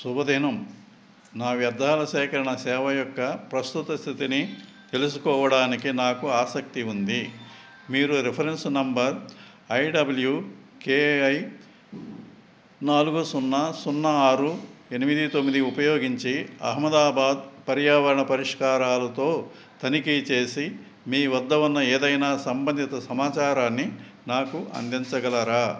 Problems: none marked